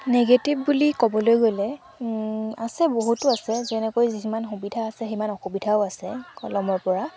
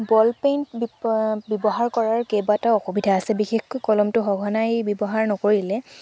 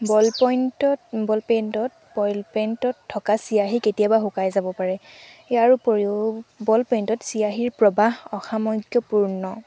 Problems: background sounds at intervals